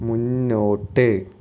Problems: none marked